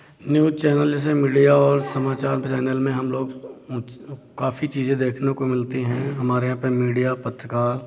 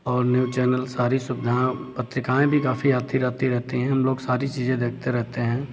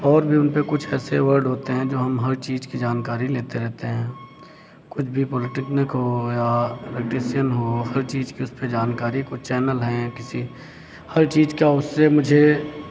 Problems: none marked